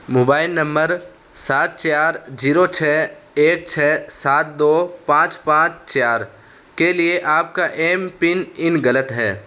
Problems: constant background noise